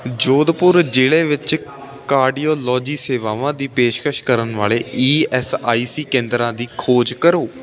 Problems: continuous background conversations